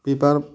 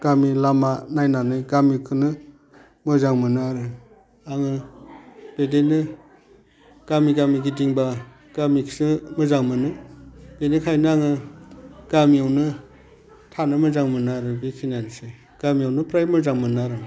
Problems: none marked